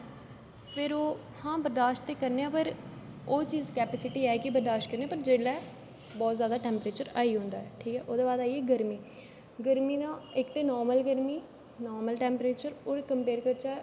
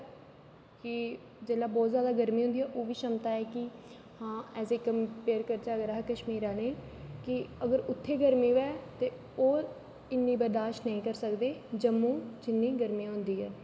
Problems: constant background noise, echo